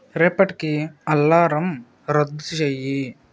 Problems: constant background noise